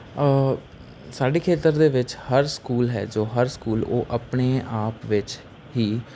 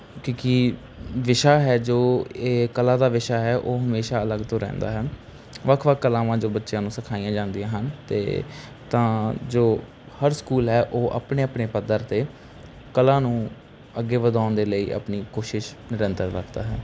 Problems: background sounds at intervals